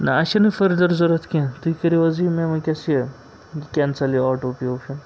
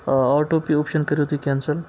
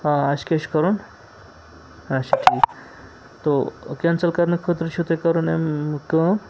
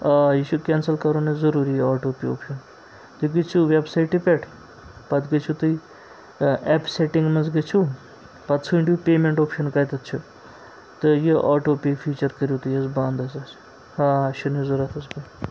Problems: constant background noise